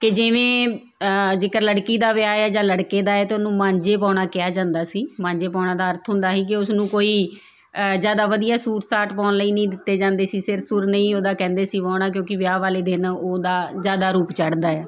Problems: background sounds at intervals